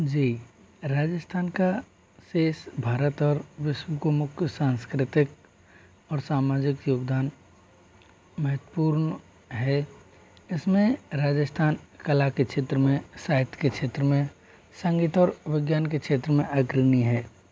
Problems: constant background noise